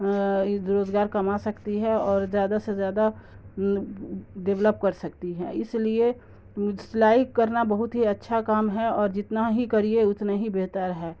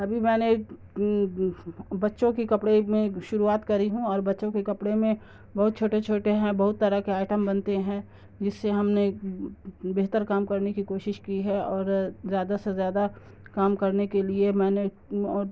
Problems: constant background noise